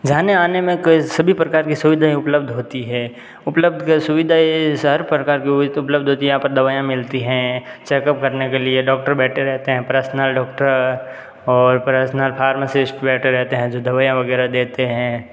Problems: none marked